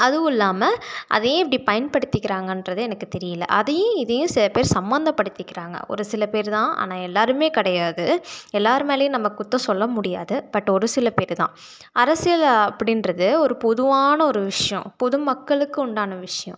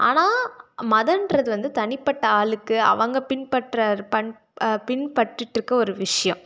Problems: none marked